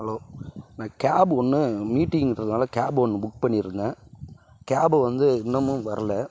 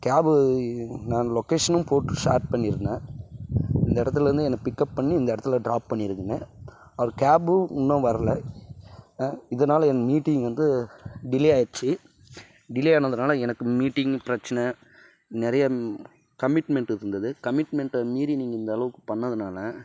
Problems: background sounds at intervals